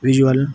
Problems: background sounds at intervals